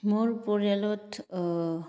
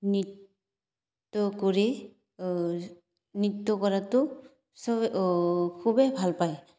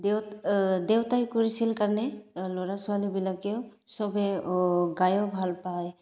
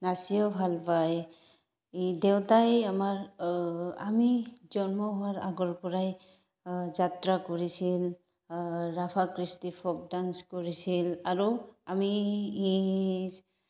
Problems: background sounds at intervals